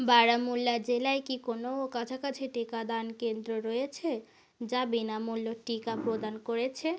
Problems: constant background noise